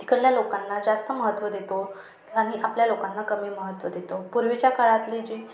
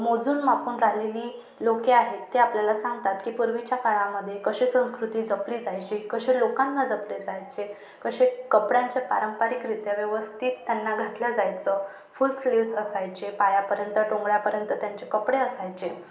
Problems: none marked